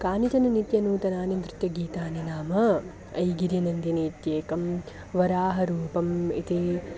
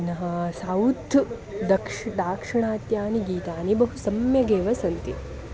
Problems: constant background noise, continuous background conversations